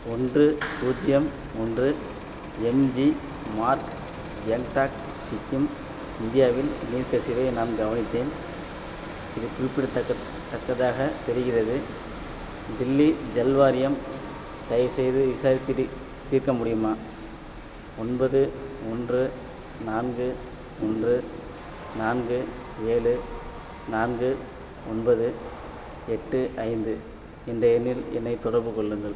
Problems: background sounds at intervals